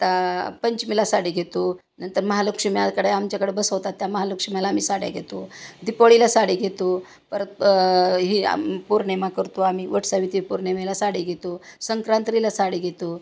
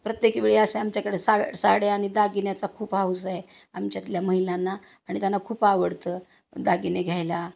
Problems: constant background noise